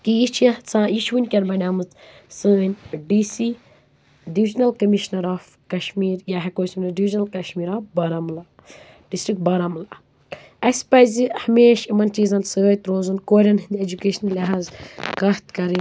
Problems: constant background noise